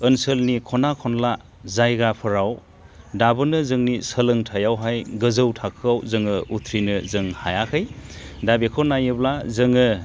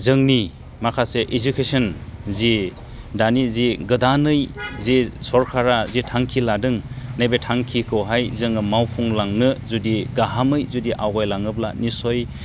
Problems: constant background noise